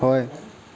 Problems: constant background noise